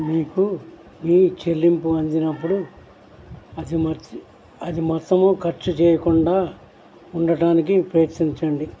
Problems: constant background noise